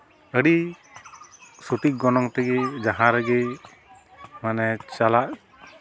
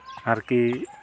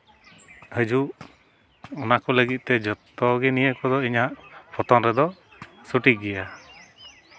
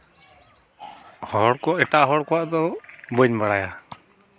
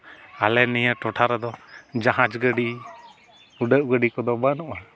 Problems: background sounds at intervals, continuous background conversations